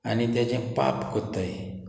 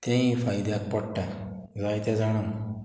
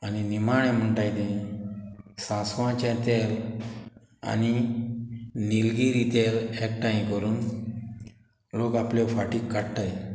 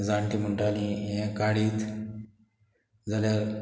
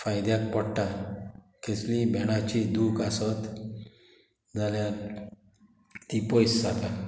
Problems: none marked